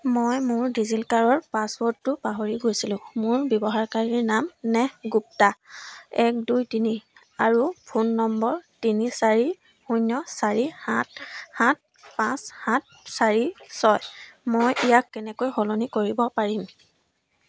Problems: none marked